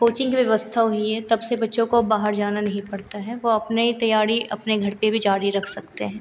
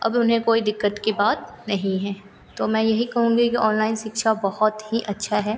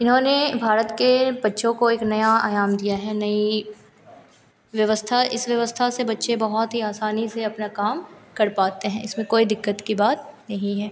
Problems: continuous background conversations